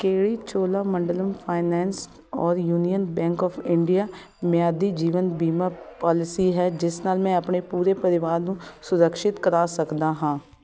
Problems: background sounds at intervals, continuous background conversations